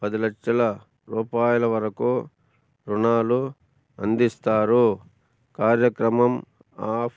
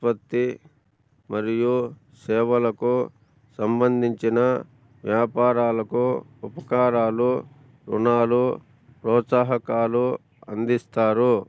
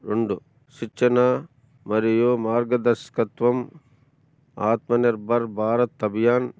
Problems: none marked